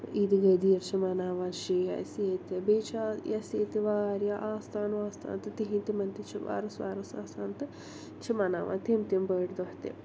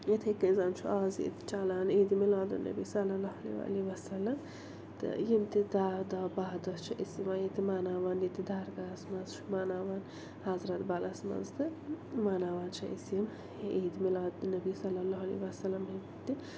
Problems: constant background noise, low volume